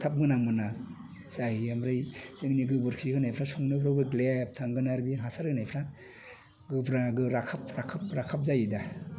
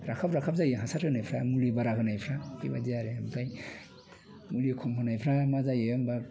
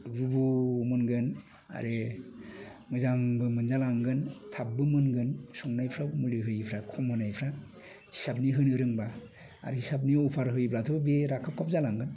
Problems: constant background noise